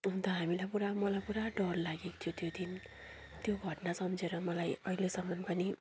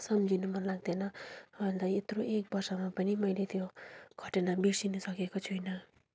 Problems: none marked